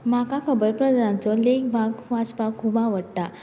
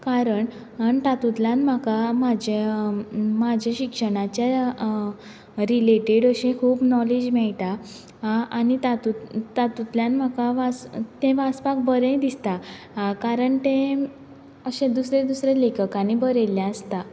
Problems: background sounds at intervals